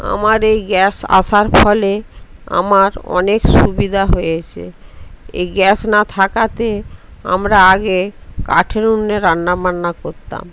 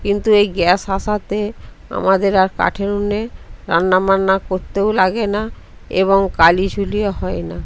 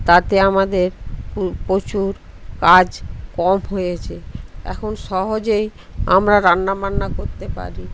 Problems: constant background noise, background conversations at intervals